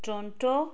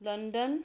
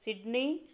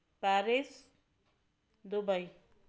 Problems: none marked